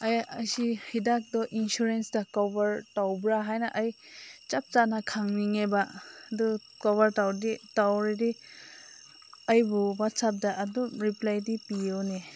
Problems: background sounds at intervals